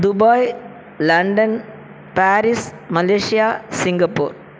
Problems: constant background noise